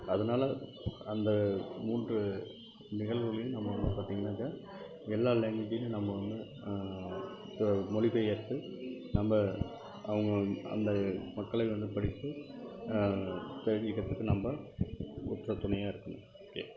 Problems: constant background noise